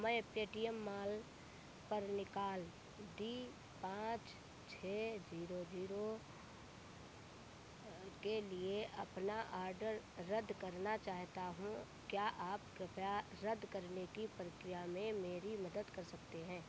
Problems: none marked